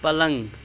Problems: constant background noise